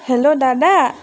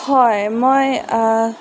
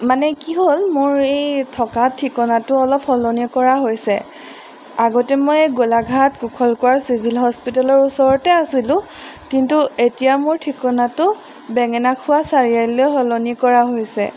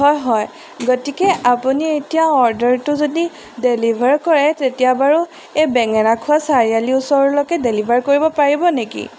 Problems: background sounds at intervals